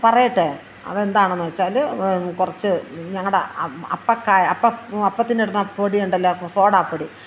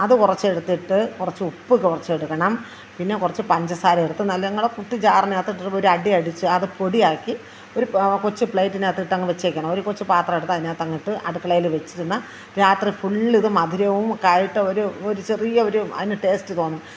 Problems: constant background noise